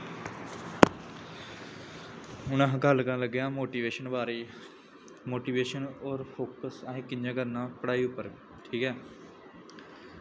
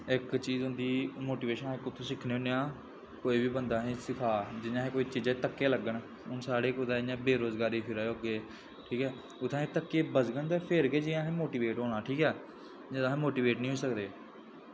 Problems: constant background noise